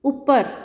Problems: none marked